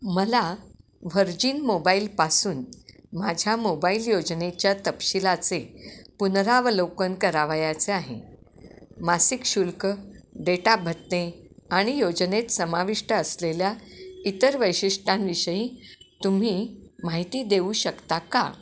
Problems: background sounds at intervals